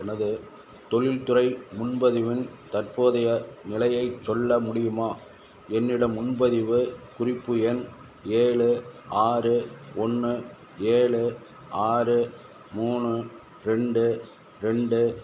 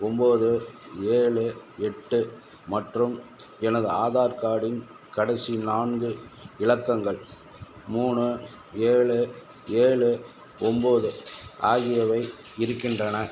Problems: background sounds at intervals